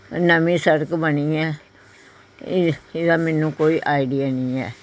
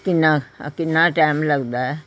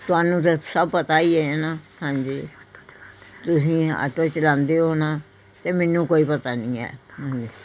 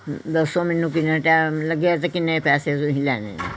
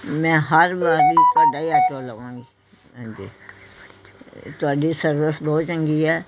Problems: continuous background conversations